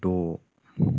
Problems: low volume